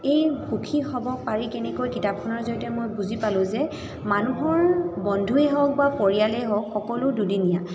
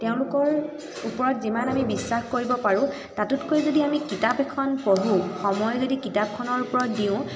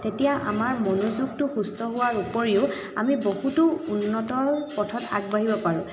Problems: background sounds at intervals, continuous background conversations, echo